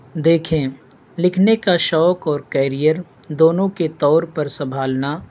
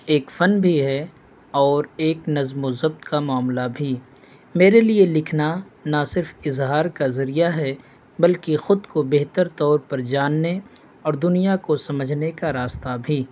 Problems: none marked